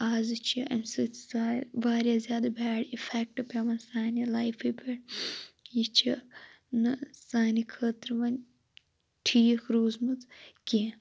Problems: constant background noise